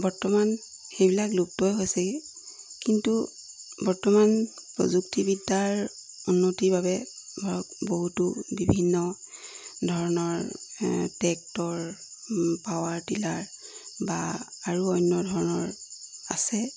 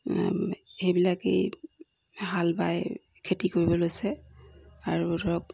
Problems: none marked